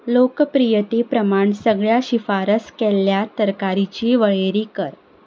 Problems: constant background noise